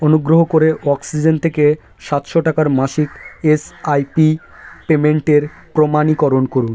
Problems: none marked